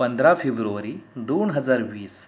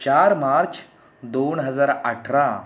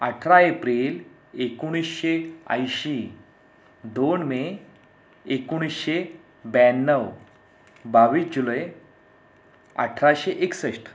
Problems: none marked